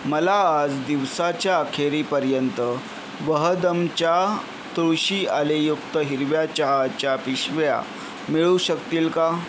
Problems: constant background noise